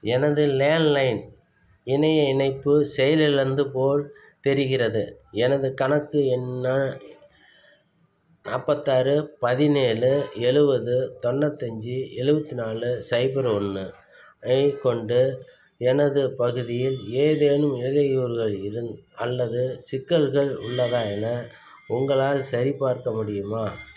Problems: constant background noise